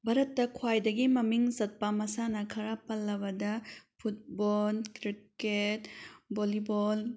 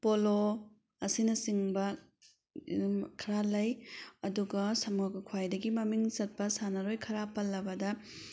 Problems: none marked